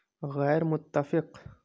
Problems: constant background noise